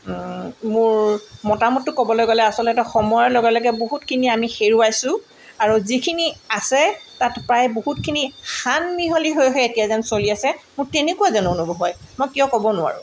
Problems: none marked